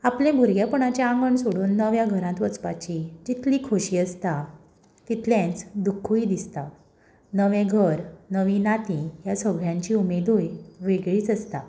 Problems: background sounds at intervals